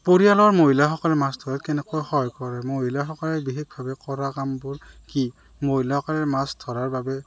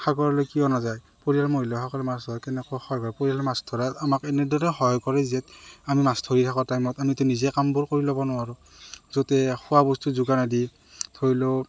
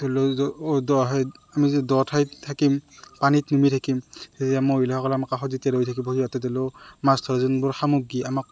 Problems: none marked